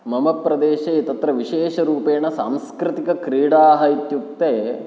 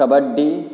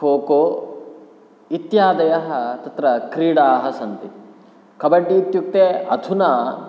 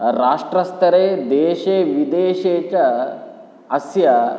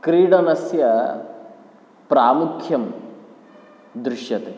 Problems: none marked